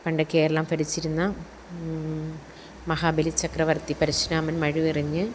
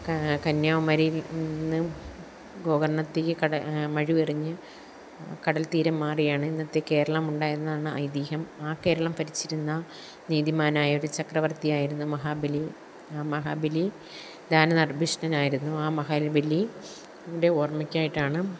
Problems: none marked